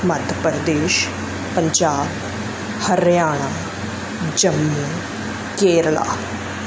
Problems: constant background noise